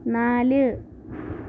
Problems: constant background noise